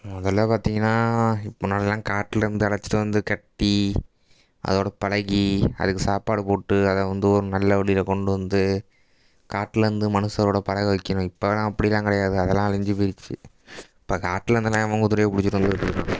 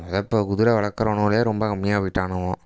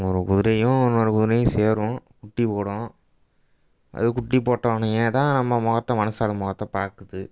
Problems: background sounds at intervals